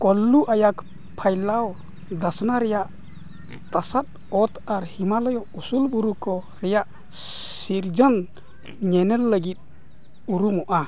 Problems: constant background noise, background conversations at intervals